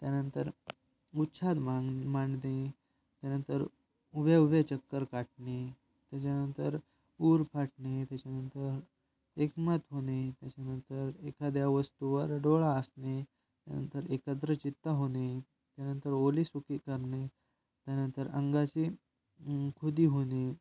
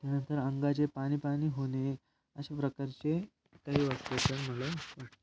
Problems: background sounds at intervals